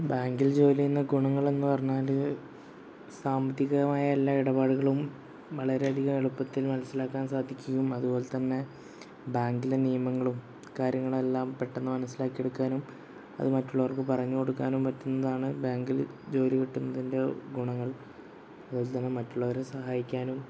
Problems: constant background noise